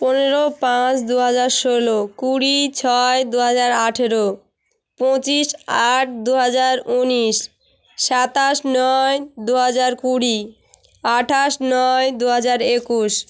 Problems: none marked